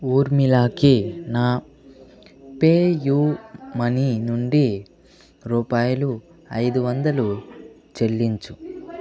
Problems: continuous background conversations